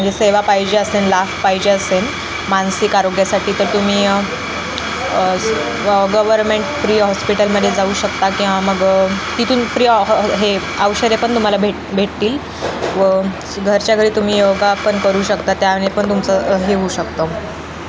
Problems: constant background noise, background conversations at intervals